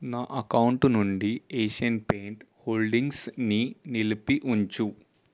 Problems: none marked